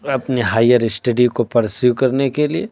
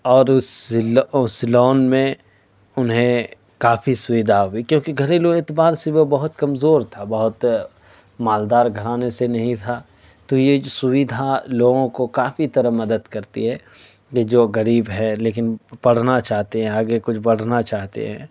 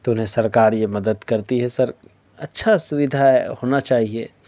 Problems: none marked